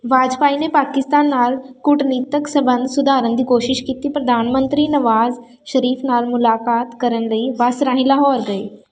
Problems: constant background noise